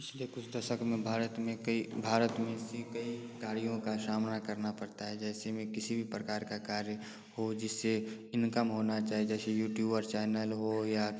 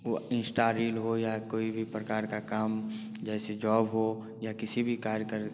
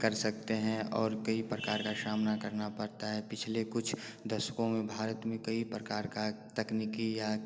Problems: constant background noise